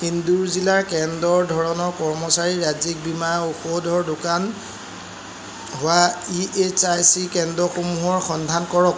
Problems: constant background noise